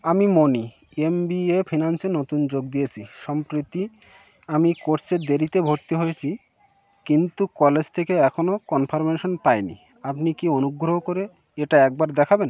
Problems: background sounds at intervals